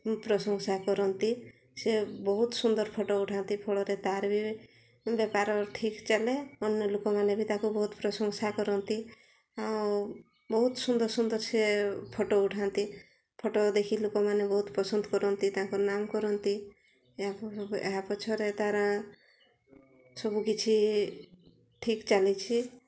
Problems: low volume